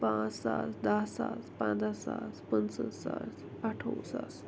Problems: low volume